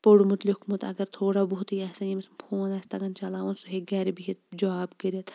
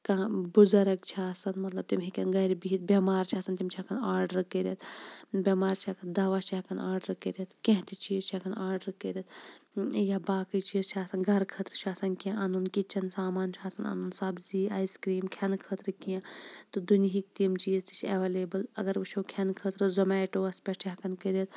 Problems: background sounds at intervals, low volume